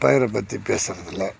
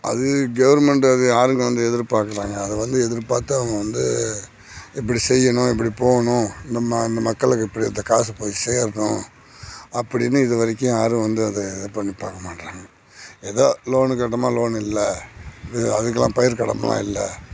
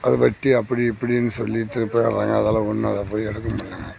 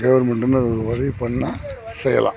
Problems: background sounds at intervals